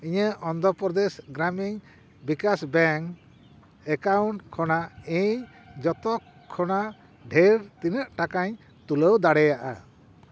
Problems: background sounds at intervals